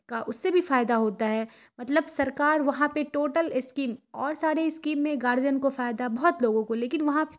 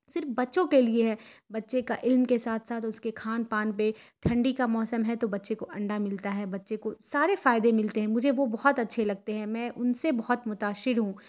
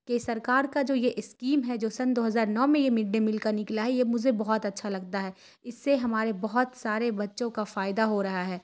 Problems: none marked